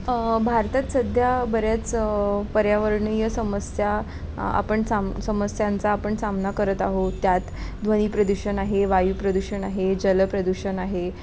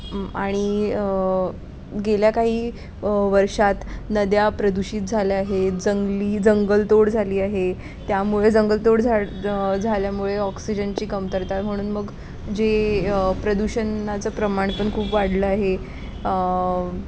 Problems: constant background noise, continuous background conversations